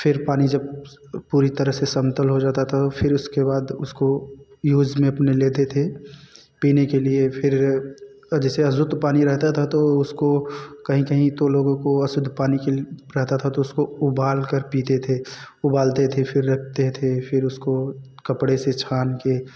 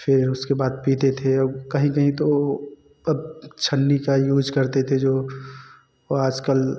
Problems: none marked